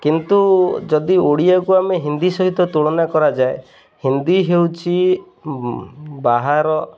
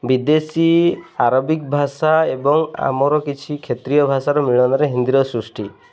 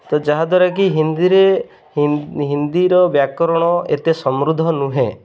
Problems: constant background noise